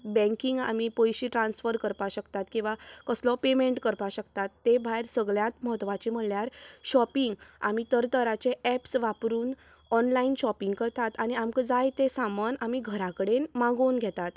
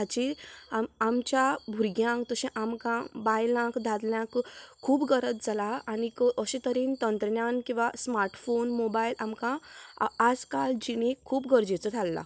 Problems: background sounds at intervals